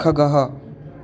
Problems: constant background noise